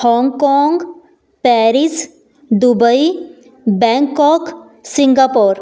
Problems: background sounds at intervals